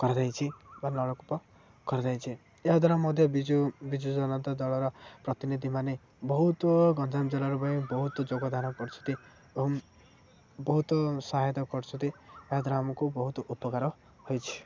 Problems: low volume